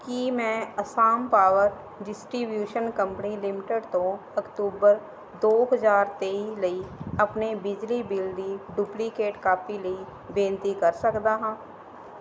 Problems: background sounds at intervals